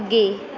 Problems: none marked